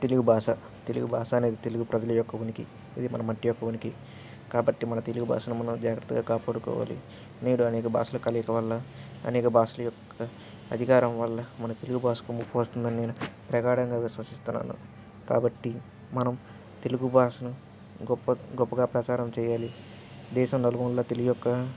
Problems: constant background noise